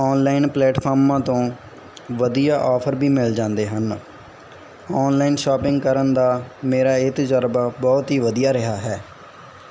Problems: background sounds at intervals